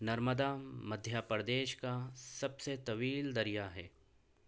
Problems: none marked